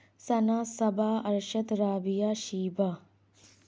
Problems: none marked